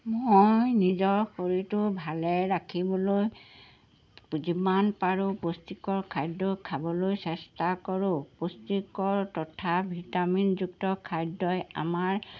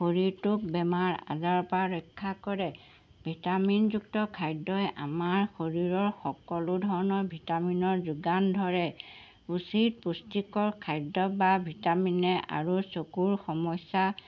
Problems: background sounds at intervals